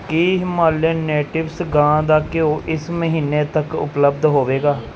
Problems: background sounds at intervals